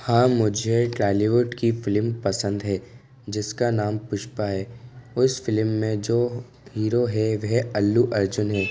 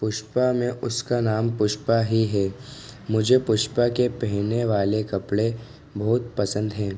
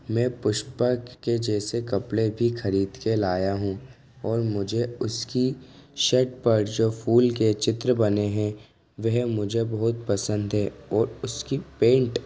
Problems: constant background noise